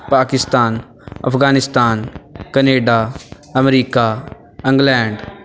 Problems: background sounds at intervals